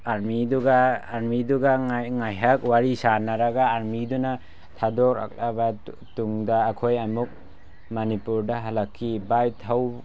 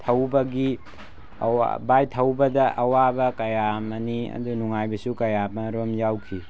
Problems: constant background noise